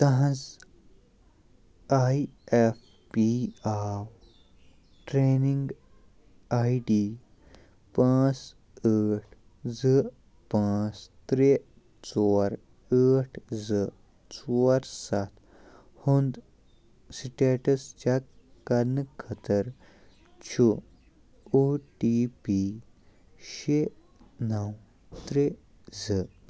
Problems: low volume